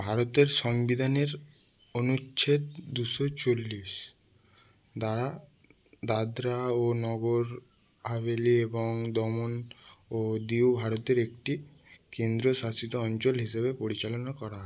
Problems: none marked